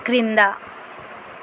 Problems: constant background noise